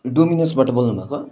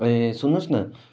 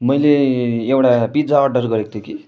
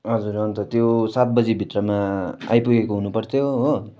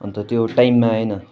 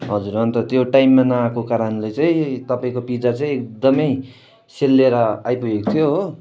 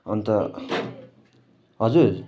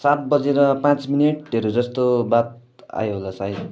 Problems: constant background noise